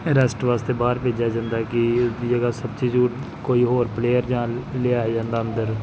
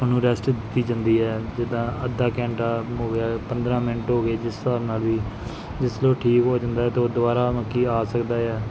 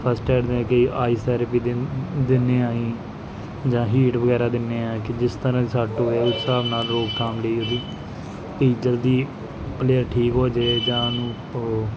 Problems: none marked